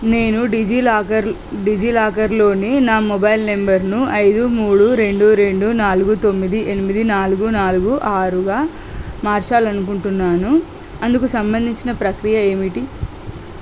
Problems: constant background noise